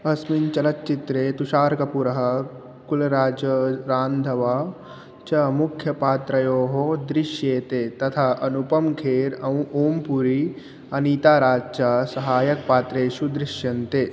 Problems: constant background noise